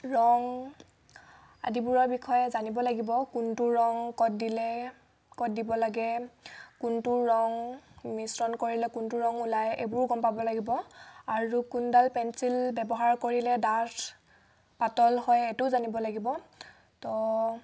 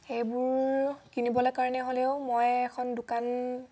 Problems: background sounds at intervals